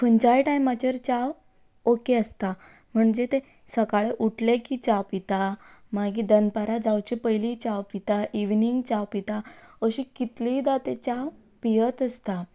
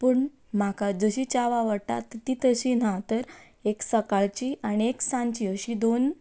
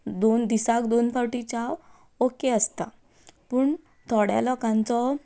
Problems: background sounds at intervals